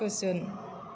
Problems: constant background noise